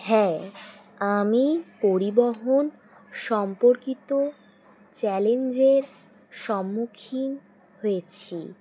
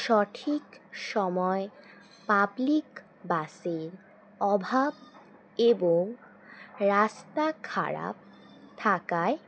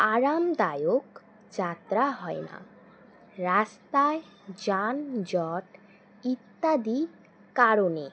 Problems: constant background noise